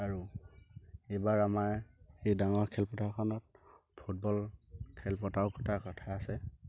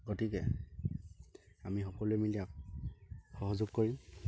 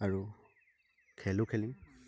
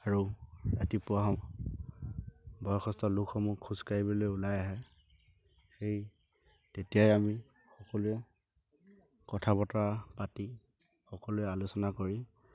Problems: low volume